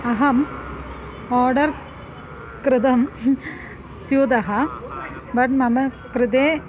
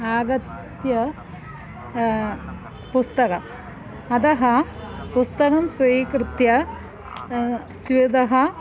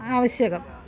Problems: background sounds at intervals